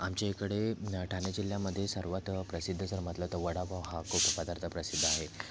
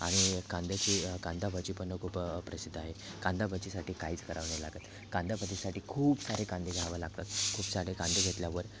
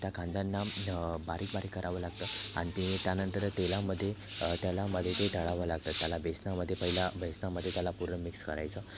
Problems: constant background noise, background conversations at intervals